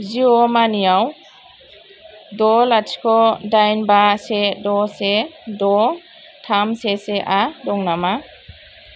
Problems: constant background noise